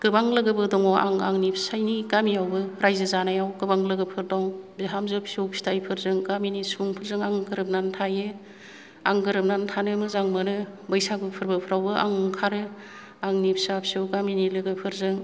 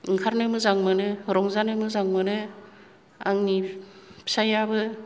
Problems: low volume